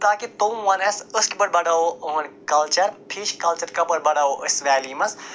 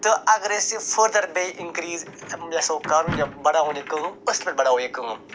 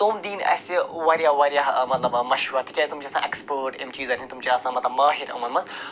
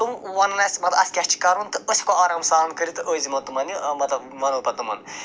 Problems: constant background noise